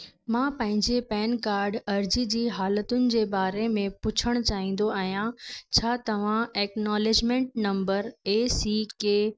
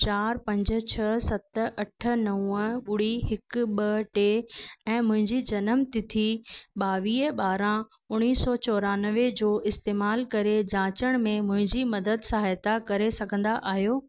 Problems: none marked